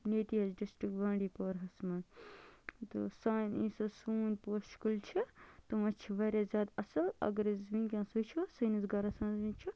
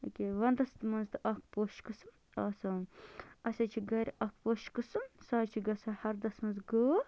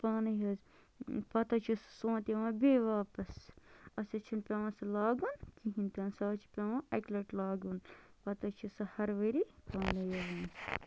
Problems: low volume